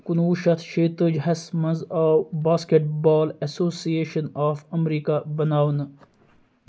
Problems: none marked